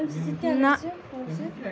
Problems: continuous background conversations